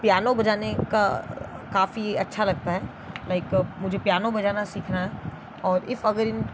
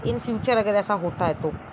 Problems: constant background noise